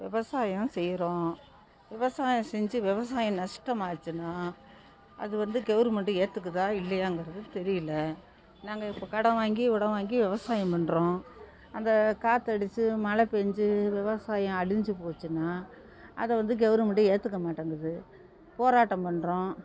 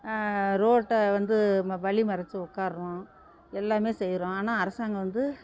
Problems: constant background noise